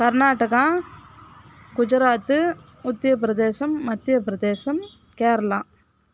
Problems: background sounds at intervals